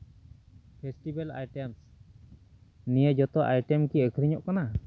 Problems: none marked